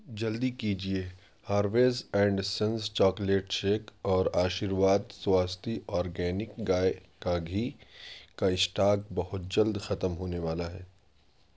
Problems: none marked